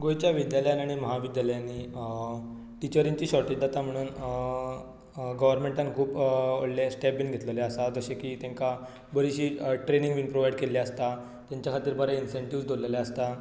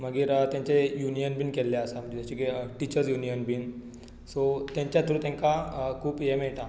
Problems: background sounds at intervals